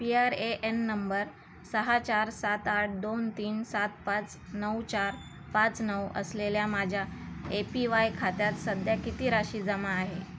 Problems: constant background noise